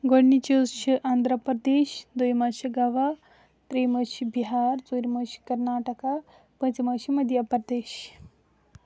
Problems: none marked